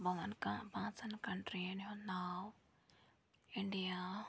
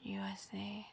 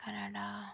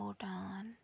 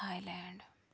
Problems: none marked